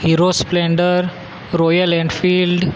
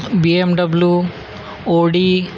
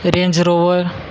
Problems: constant background noise